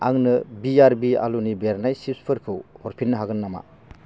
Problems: constant background noise